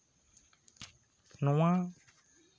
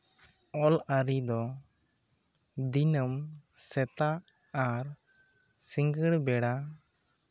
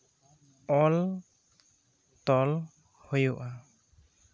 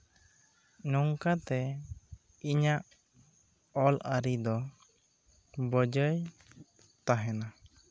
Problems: low volume